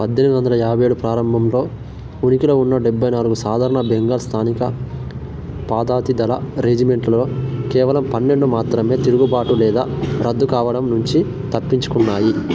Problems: none marked